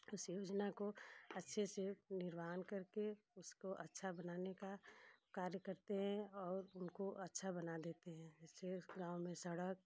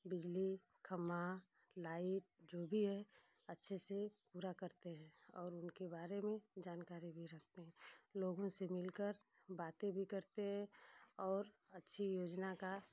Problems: constant background noise